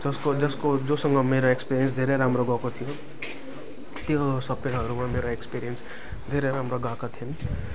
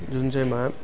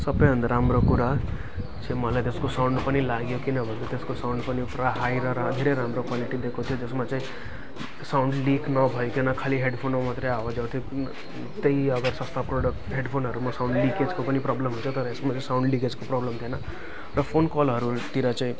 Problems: constant background noise, continuous background conversations